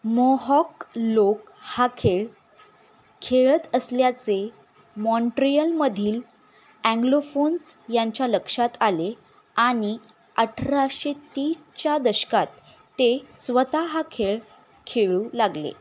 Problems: none marked